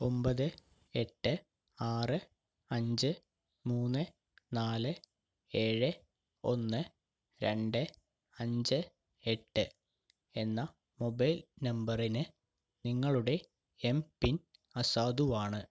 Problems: none marked